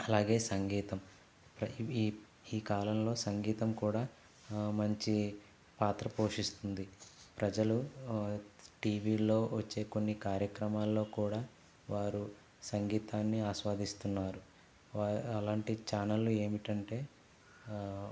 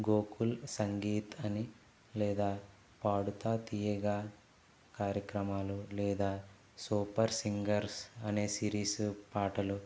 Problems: none marked